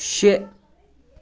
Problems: background sounds at intervals, background conversations at intervals